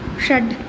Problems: none marked